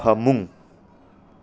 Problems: low volume